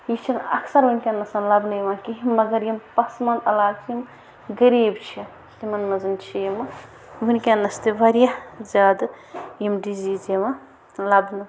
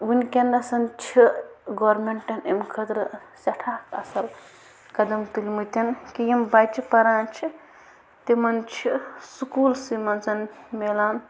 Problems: constant background noise